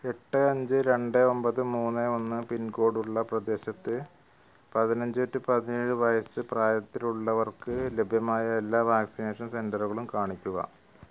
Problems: none marked